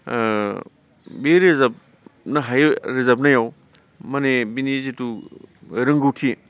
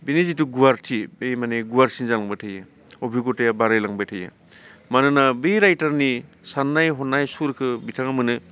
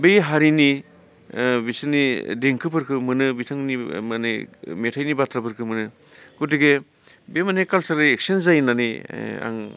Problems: constant background noise